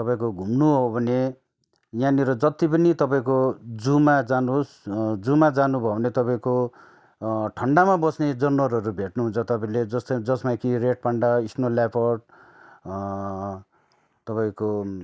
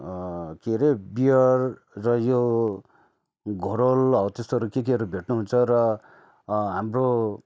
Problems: none marked